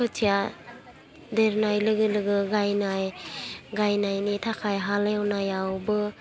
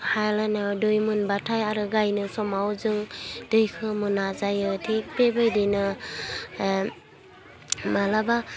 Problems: low volume